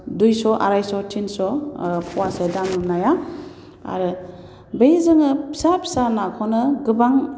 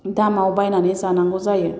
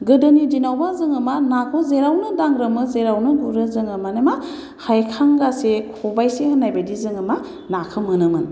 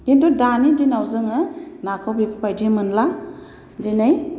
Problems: constant background noise